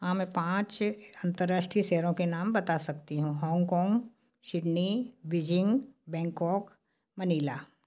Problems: none marked